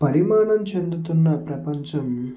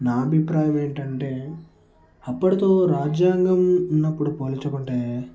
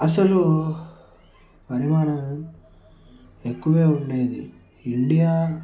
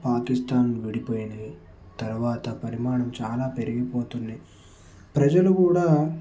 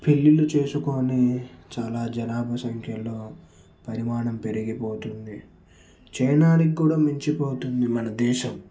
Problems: none marked